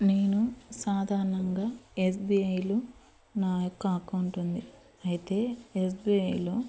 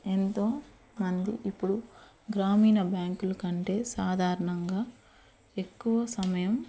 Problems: constant background noise